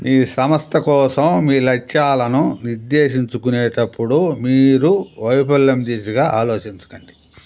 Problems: constant background noise